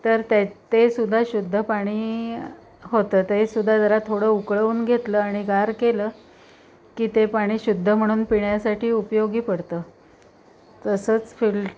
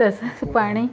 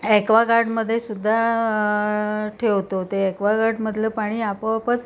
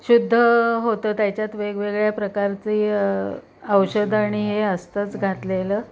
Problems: background sounds at intervals